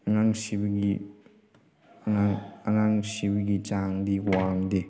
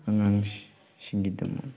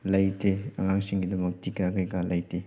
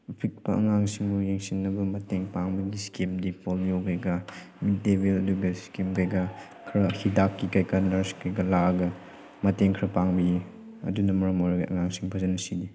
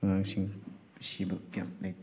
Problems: background sounds at intervals